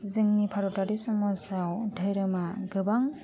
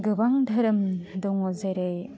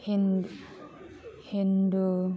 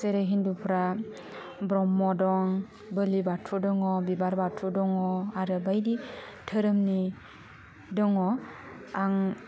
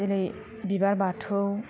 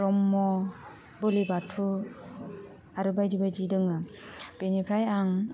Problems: constant background noise